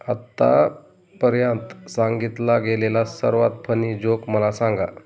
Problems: background sounds at intervals